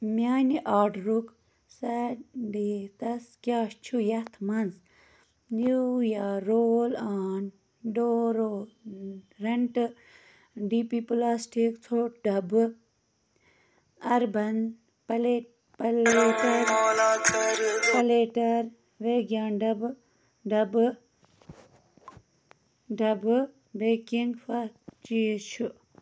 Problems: constant background noise